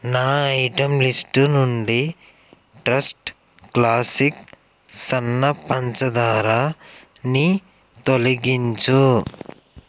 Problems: none marked